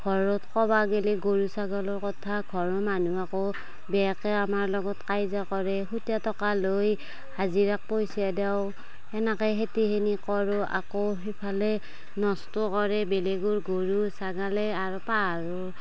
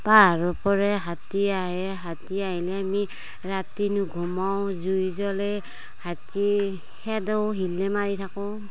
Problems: background sounds at intervals, background conversations at intervals